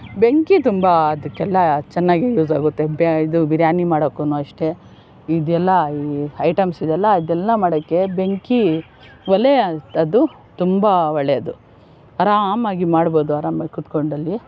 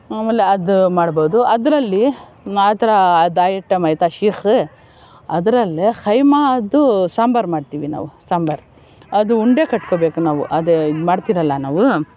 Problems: background sounds at intervals